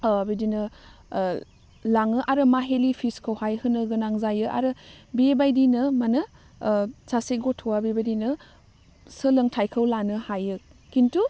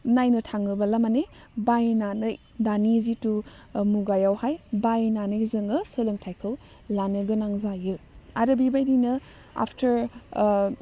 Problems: none marked